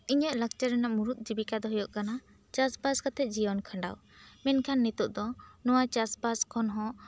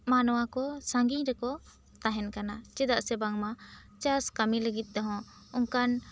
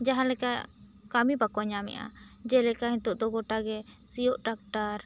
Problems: none marked